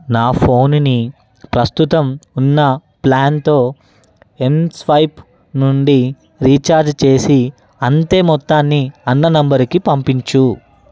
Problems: background sounds at intervals